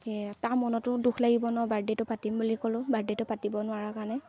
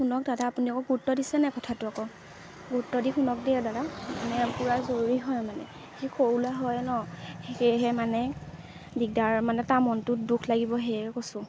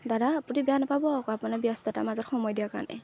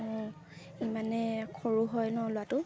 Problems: constant background noise